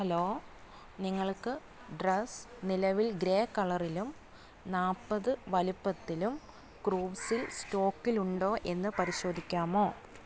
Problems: none marked